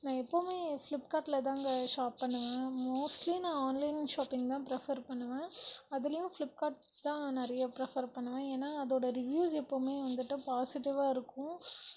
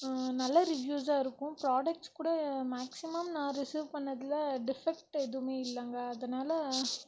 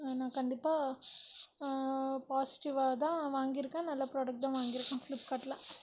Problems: constant background noise, low volume